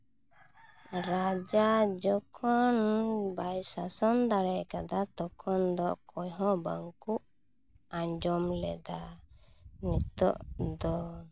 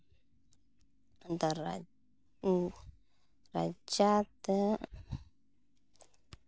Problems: constant background noise